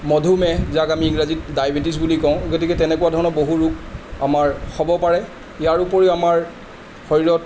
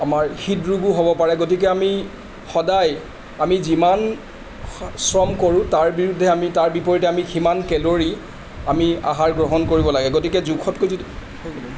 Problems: constant background noise